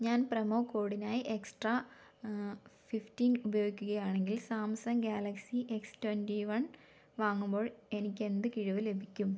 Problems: none marked